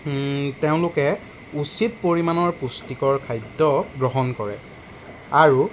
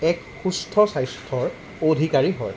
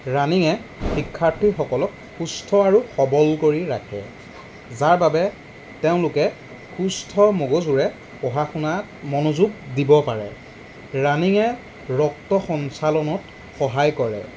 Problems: background sounds at intervals